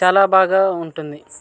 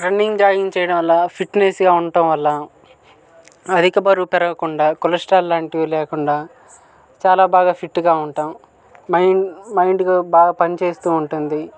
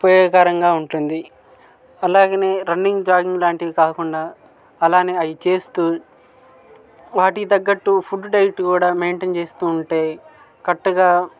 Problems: constant background noise, background conversations at intervals